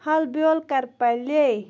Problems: constant background noise